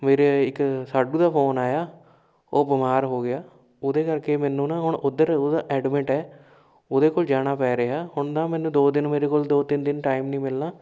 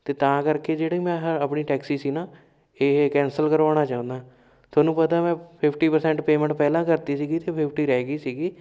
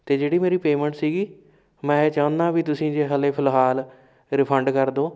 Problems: background sounds at intervals